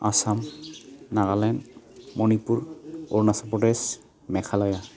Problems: constant background noise